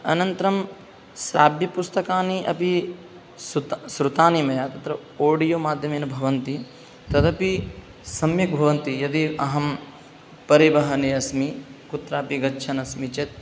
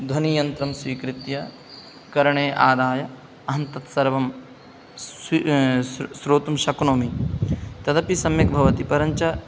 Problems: background sounds at intervals